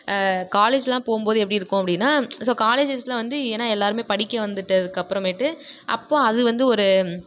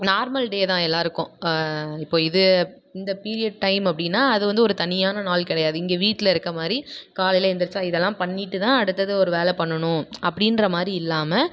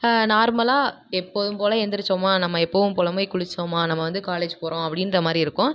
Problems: none marked